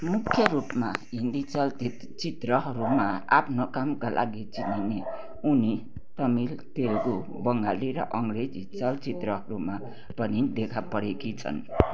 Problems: constant background noise